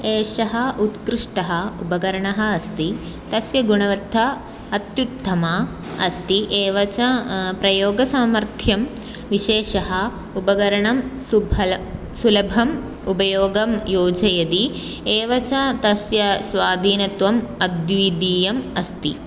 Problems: none marked